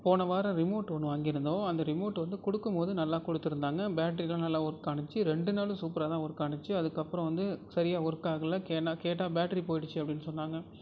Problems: none marked